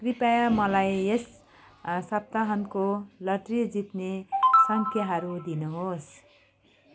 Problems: background sounds at intervals